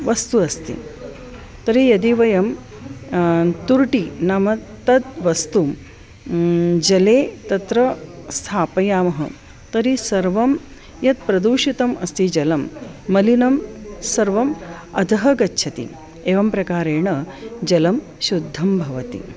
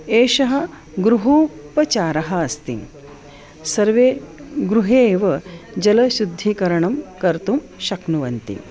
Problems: none marked